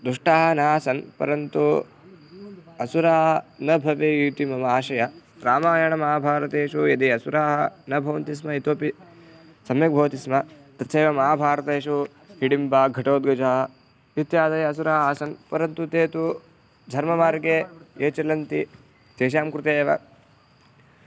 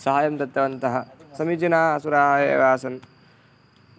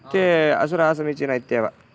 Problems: background sounds at intervals